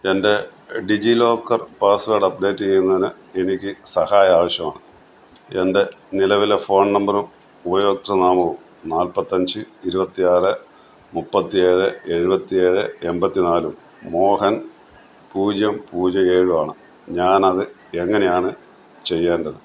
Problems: background sounds at intervals